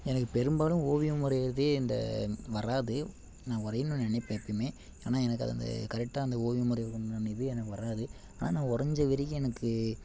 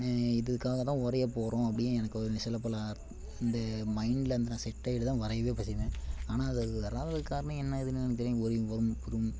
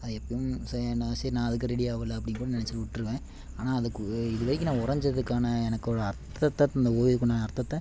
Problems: none marked